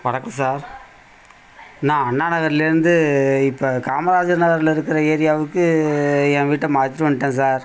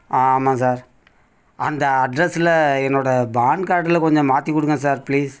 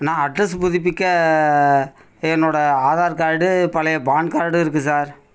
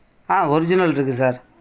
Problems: background conversations at intervals